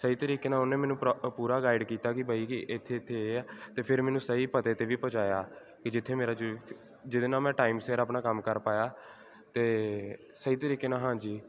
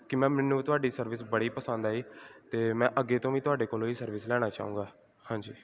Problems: background conversations at intervals